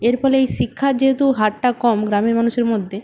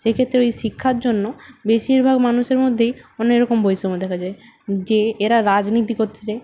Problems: constant background noise